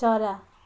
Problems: background sounds at intervals